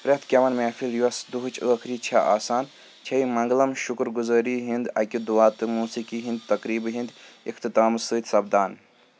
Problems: constant background noise